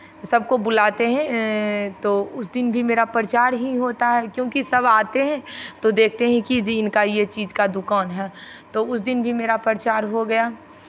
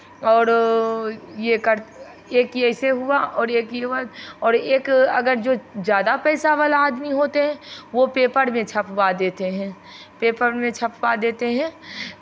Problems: none marked